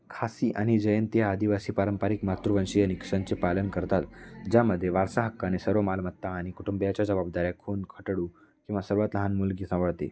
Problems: background sounds at intervals, background conversations at intervals